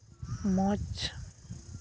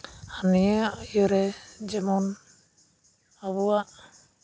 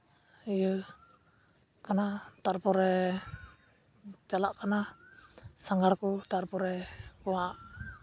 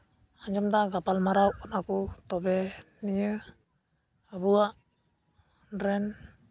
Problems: constant background noise